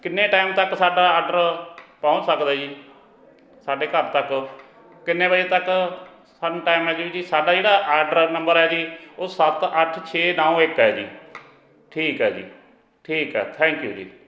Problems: continuous background conversations